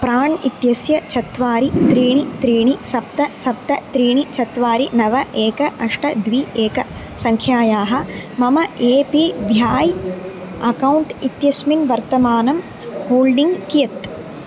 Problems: constant background noise